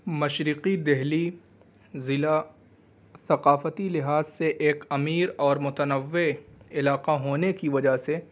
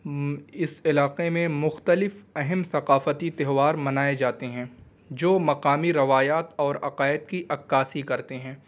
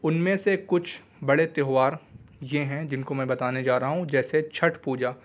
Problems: constant background noise